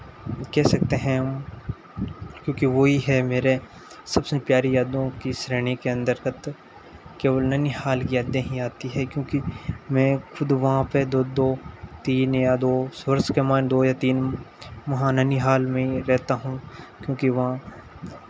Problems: none marked